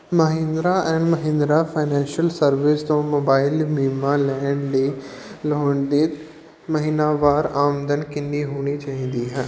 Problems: background sounds at intervals